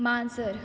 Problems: constant background noise